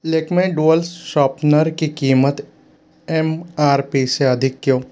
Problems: constant background noise